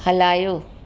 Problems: constant background noise, echo